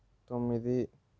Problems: low volume